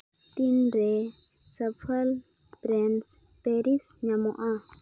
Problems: constant background noise